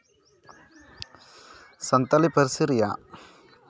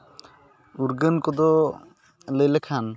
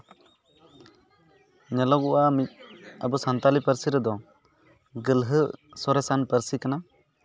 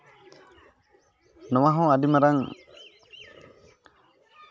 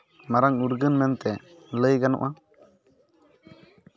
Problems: none marked